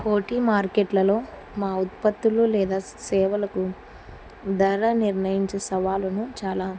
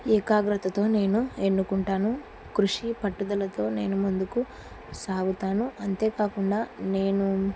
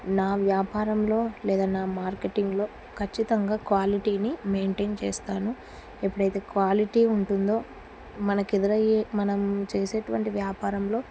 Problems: constant background noise